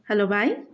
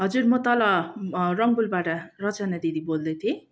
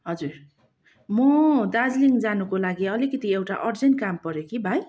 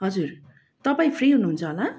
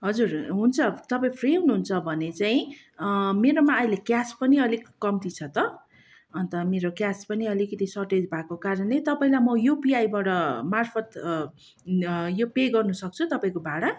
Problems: constant background noise